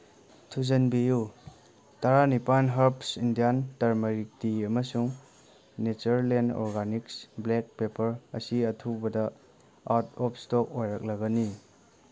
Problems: none marked